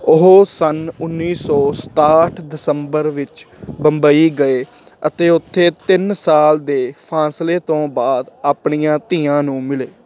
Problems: constant background noise